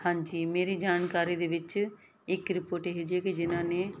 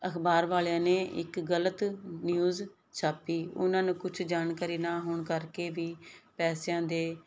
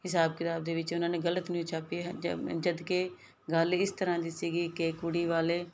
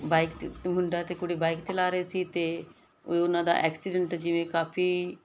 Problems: none marked